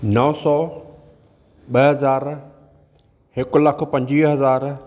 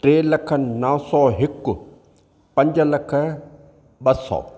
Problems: none marked